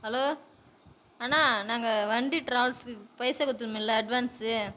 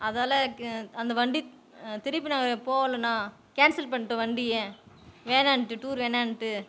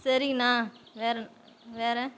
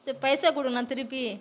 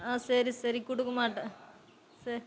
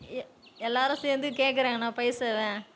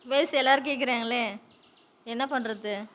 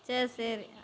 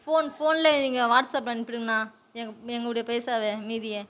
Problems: background sounds at intervals